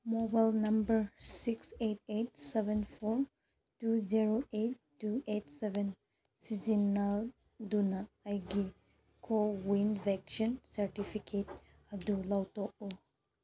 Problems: none marked